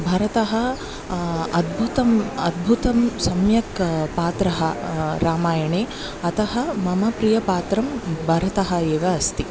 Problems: none marked